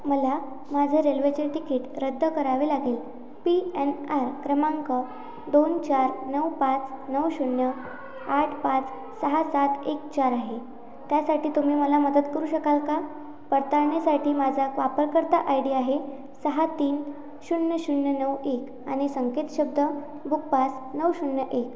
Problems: constant background noise, background conversations at intervals